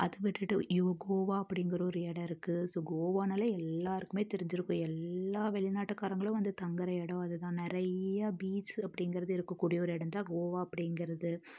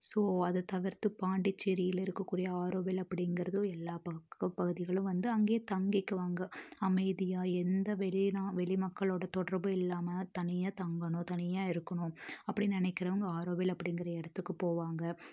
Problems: low volume